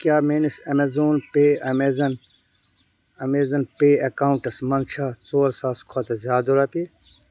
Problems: none marked